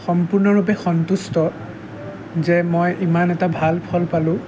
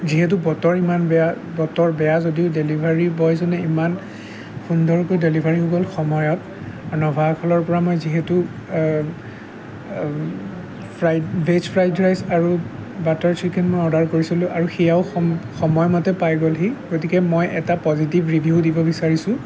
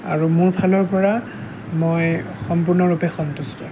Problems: constant background noise, background conversations at intervals